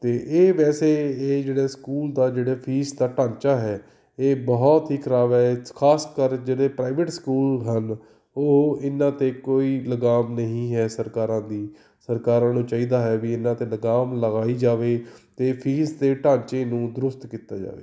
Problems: none marked